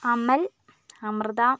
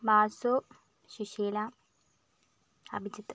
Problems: low volume